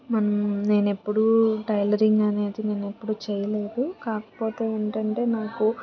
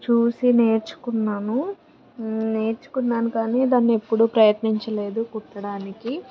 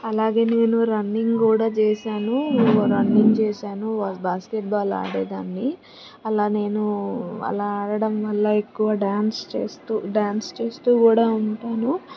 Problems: constant background noise, background conversations at intervals